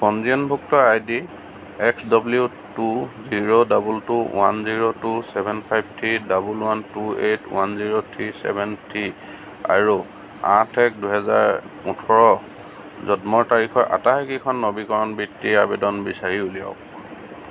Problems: constant background noise